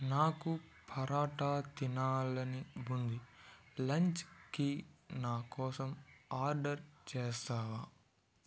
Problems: none marked